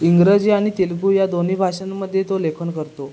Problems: background sounds at intervals